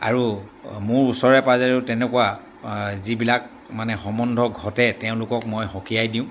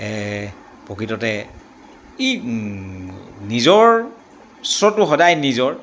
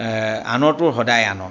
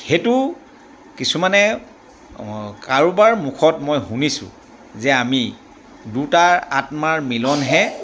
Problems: none marked